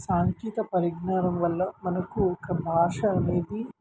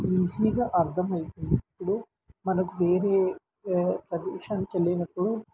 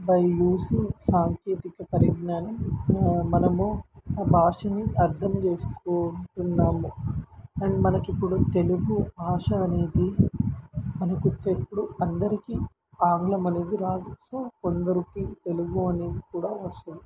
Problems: constant background noise